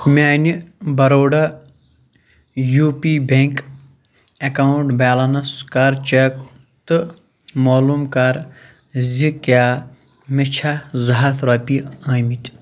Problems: none marked